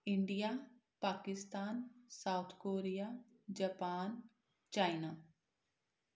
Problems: none marked